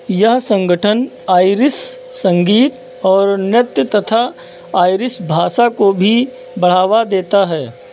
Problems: background sounds at intervals